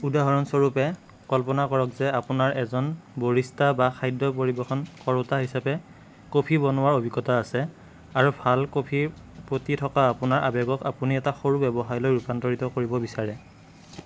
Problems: background conversations at intervals